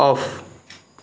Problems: background sounds at intervals